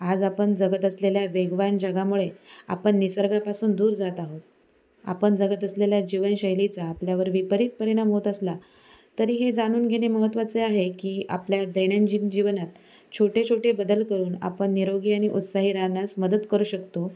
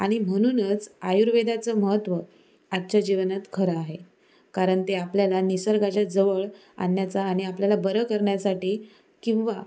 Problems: constant background noise